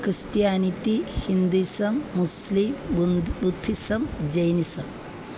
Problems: none marked